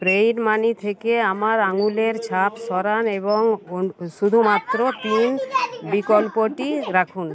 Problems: background sounds at intervals, continuous background conversations